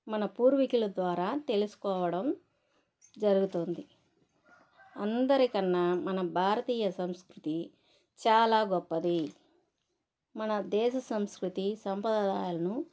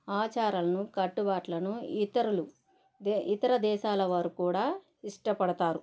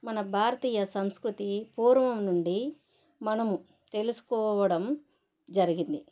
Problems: background sounds at intervals